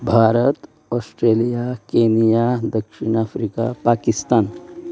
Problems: none marked